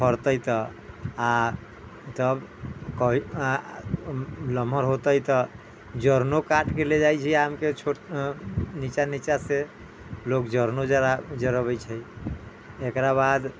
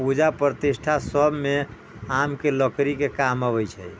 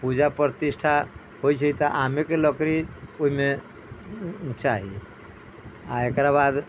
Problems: background sounds at intervals, background conversations at intervals